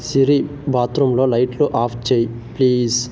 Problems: none marked